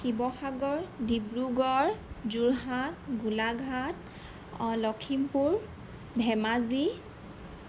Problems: constant background noise